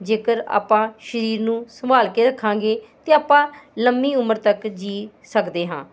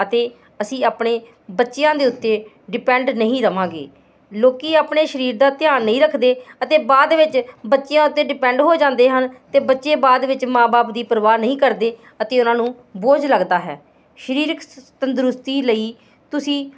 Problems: constant background noise